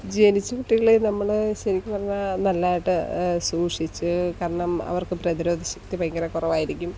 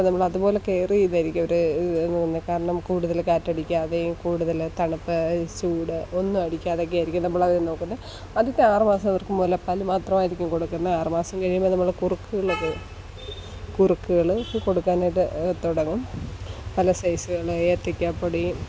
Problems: constant background noise